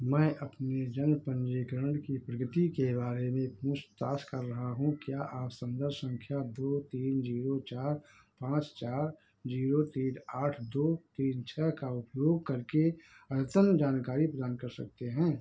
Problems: background sounds at intervals